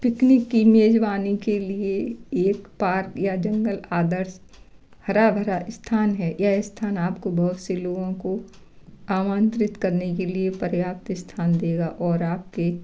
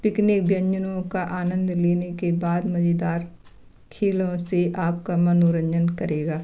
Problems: background sounds at intervals, background conversations at intervals